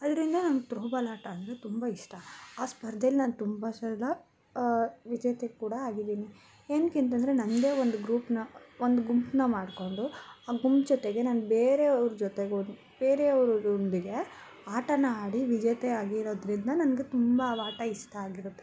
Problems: background sounds at intervals